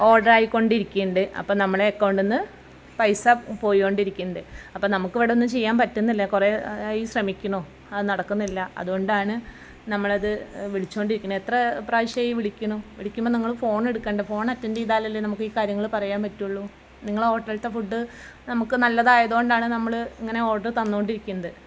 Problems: background conversations at intervals